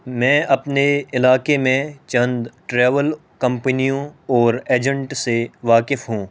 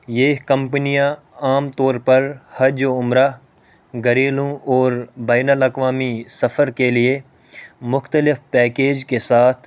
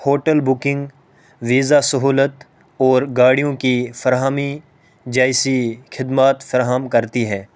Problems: constant background noise